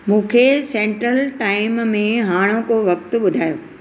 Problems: none marked